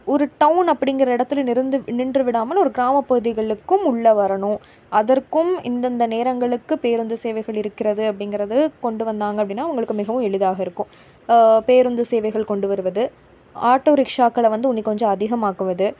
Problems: none marked